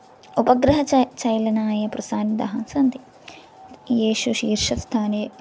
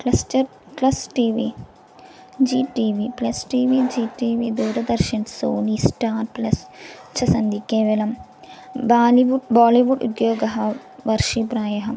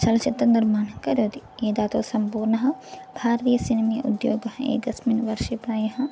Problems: constant background noise